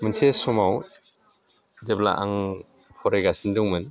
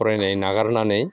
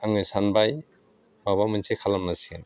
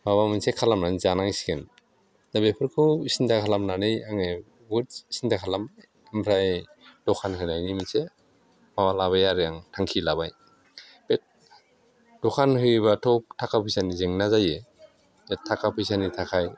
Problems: low volume